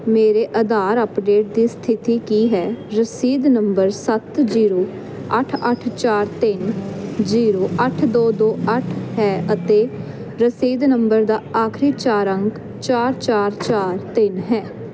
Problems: none marked